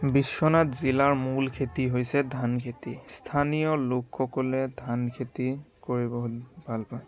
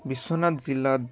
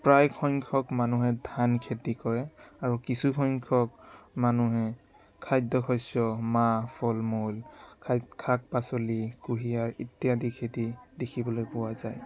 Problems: constant background noise, continuous background conversations